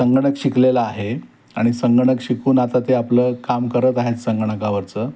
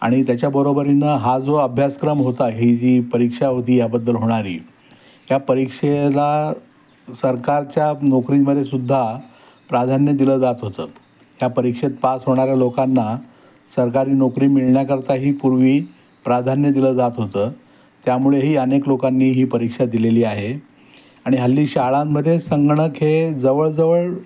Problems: none marked